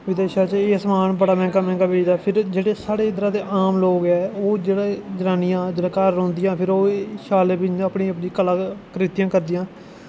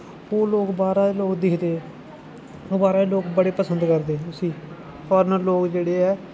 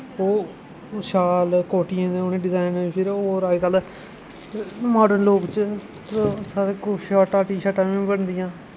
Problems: constant background noise